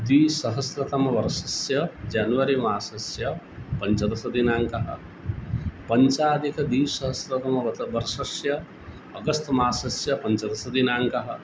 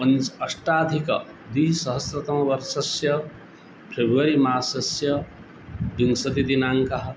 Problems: none marked